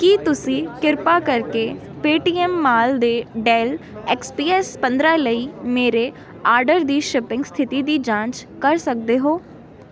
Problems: background sounds at intervals